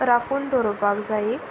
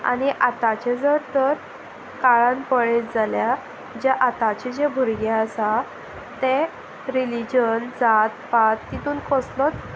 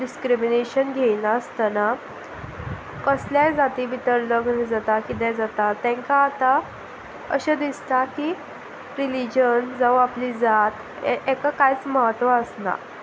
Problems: constant background noise